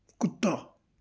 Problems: background sounds at intervals